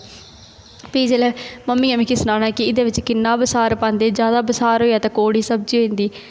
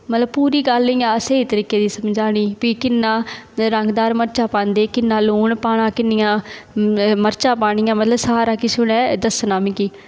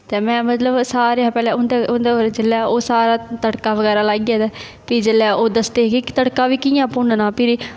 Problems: constant background noise